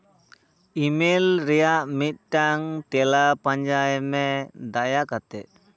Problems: none marked